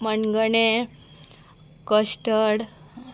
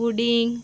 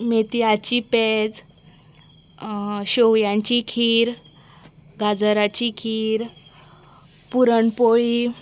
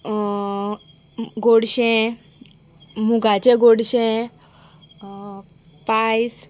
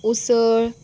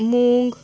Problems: constant background noise